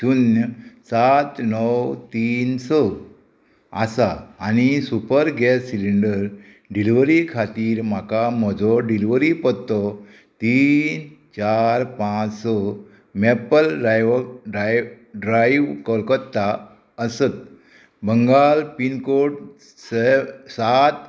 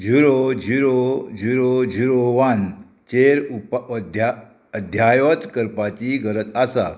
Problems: constant background noise